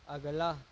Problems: constant background noise, low volume